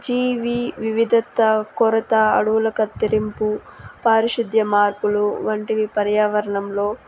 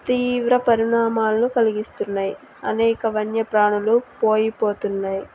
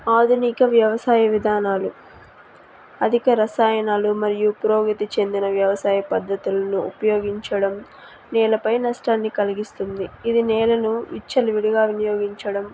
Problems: constant background noise